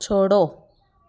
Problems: background sounds at intervals, continuous background conversations